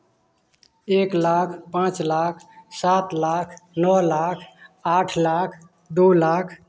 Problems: none marked